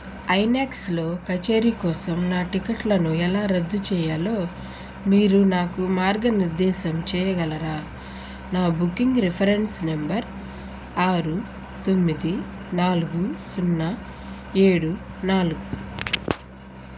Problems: constant background noise